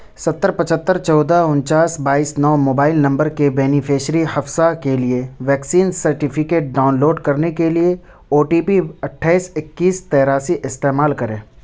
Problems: none marked